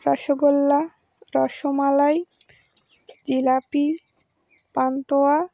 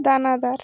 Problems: constant background noise, continuous background conversations